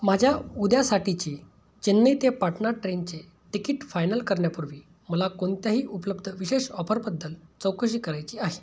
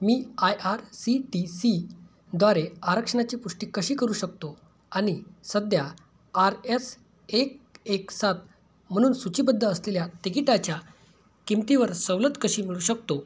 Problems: none marked